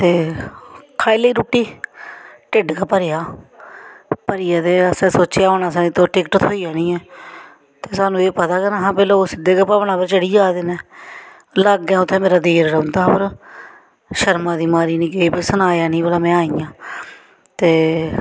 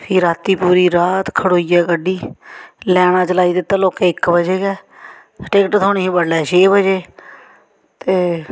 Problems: background sounds at intervals